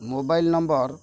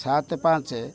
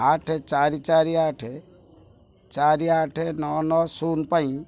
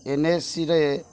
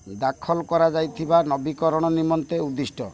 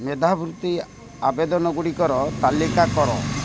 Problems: none marked